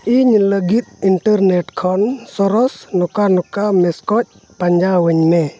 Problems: background sounds at intervals